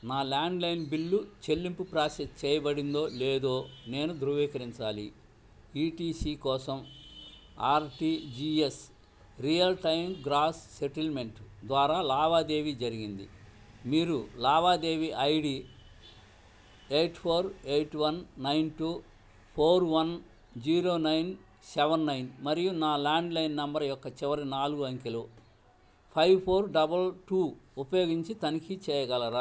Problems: none marked